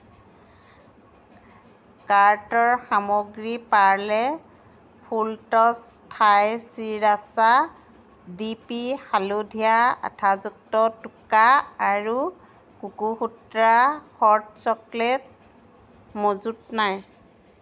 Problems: constant background noise